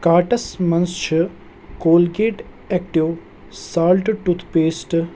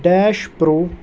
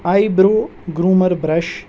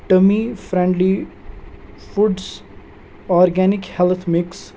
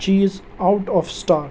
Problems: background sounds at intervals